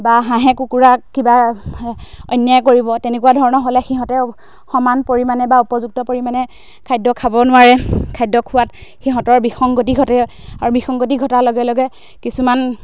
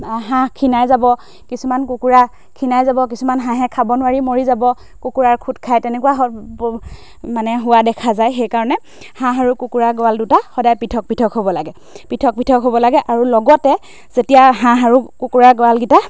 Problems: background sounds at intervals